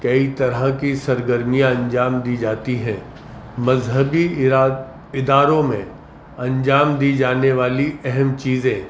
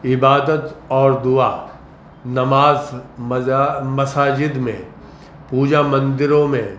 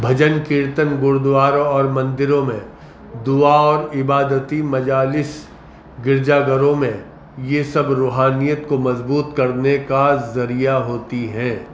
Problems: constant background noise